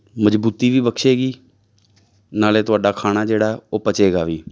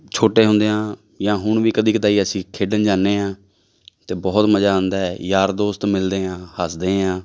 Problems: background sounds at intervals